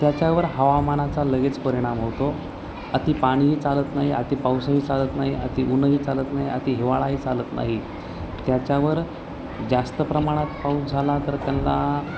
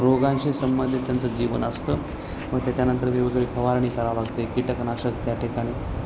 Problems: constant background noise, continuous background conversations